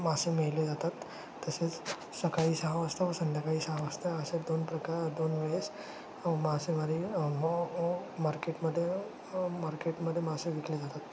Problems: none marked